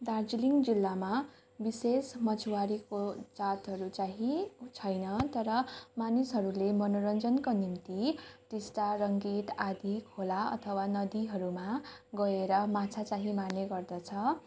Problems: continuous background conversations